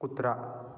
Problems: none marked